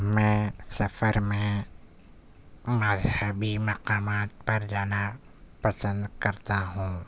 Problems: none marked